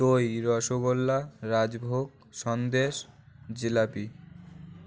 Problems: constant background noise